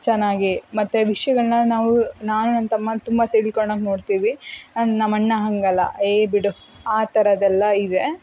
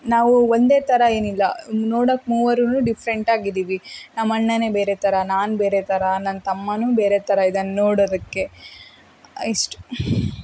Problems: none marked